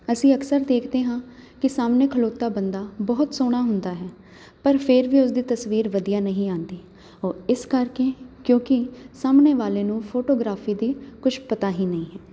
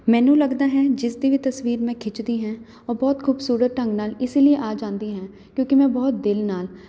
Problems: none marked